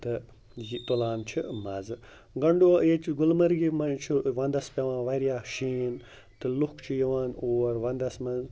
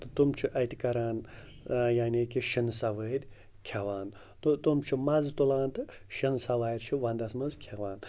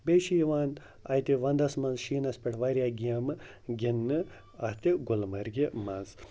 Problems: none marked